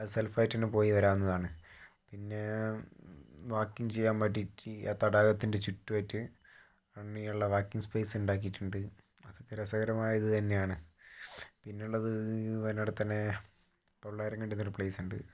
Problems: low volume